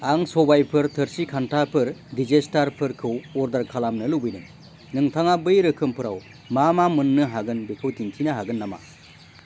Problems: constant background noise